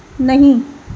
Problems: background sounds at intervals